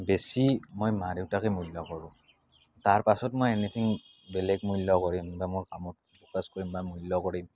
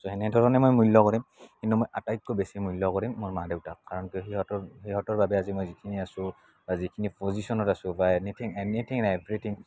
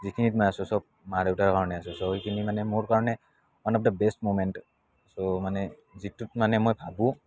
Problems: none marked